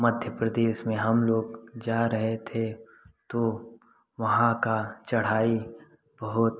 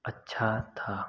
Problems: none marked